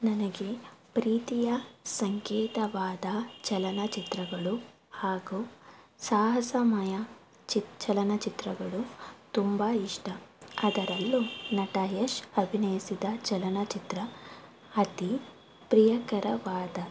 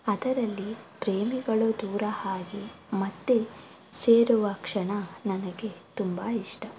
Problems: background sounds at intervals